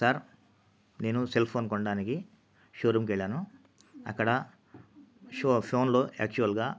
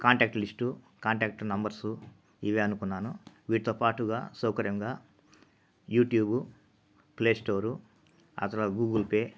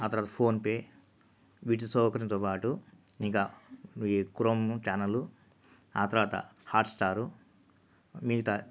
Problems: constant background noise